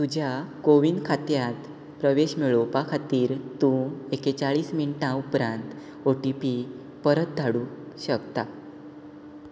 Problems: none marked